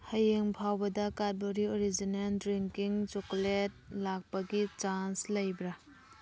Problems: background sounds at intervals